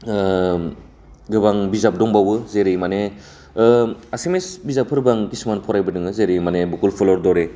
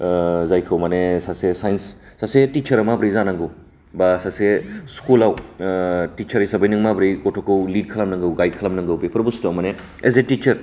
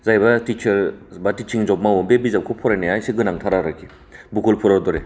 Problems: low volume